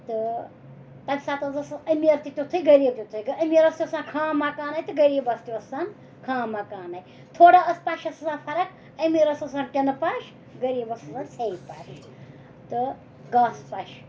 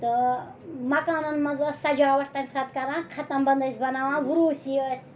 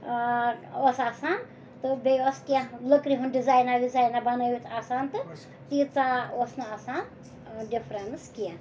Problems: background sounds at intervals, background conversations at intervals